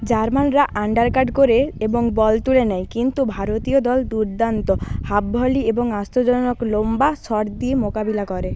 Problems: background sounds at intervals, background conversations at intervals